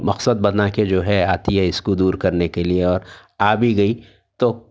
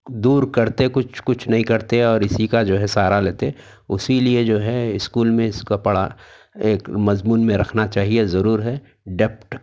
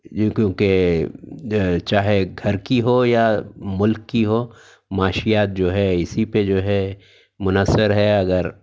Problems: none marked